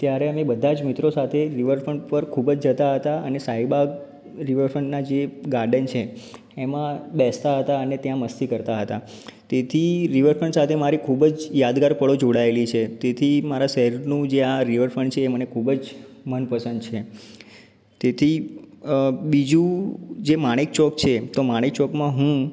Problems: background sounds at intervals